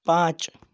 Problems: none marked